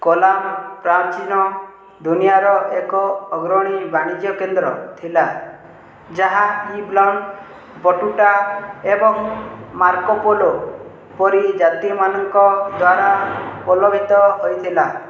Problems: background sounds at intervals